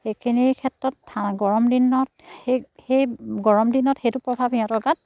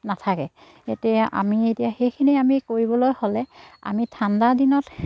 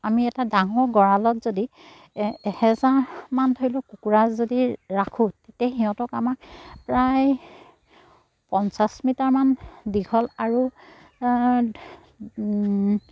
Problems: none marked